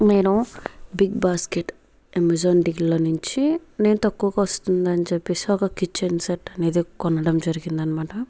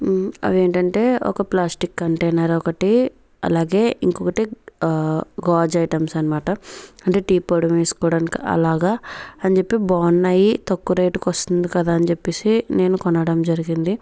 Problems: background sounds at intervals